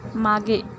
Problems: constant background noise